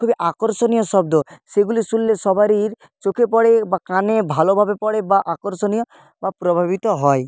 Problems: constant background noise